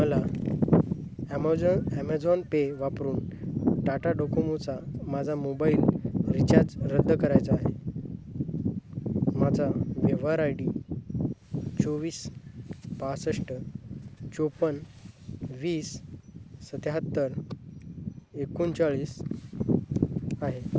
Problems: constant background noise, low volume